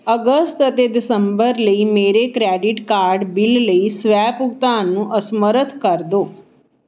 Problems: none marked